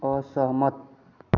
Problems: constant background noise